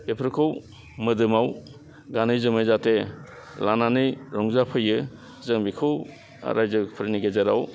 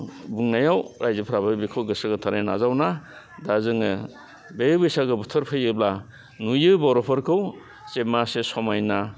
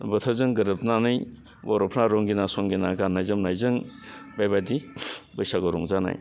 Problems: constant background noise